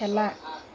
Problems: constant background noise